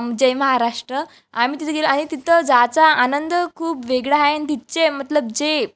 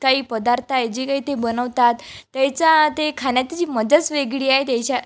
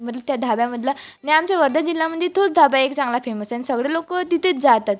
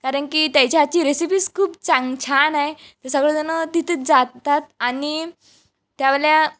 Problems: constant background noise